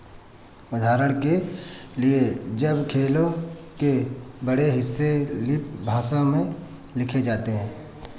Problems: none marked